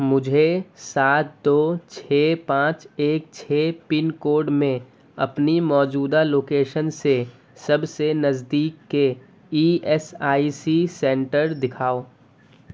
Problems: constant background noise